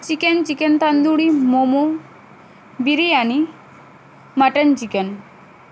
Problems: constant background noise